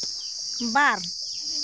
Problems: constant background noise